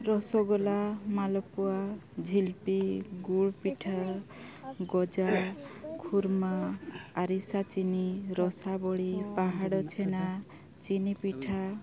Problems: constant background noise, background conversations at intervals